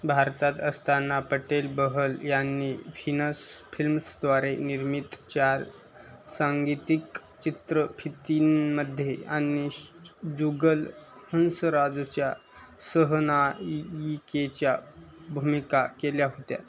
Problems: none marked